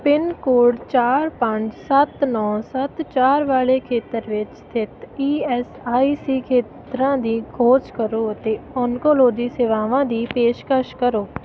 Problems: none marked